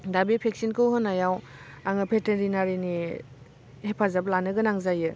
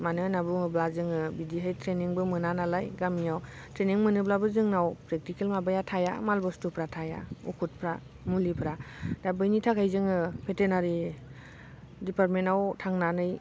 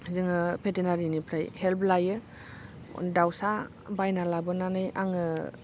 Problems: constant background noise